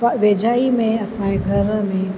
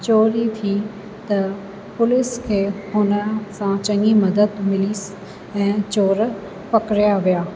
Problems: constant background noise, echo